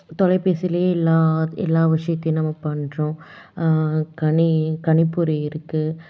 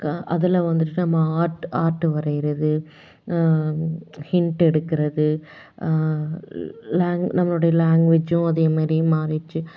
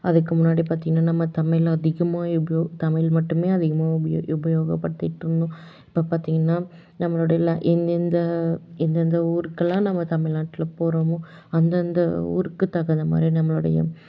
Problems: none marked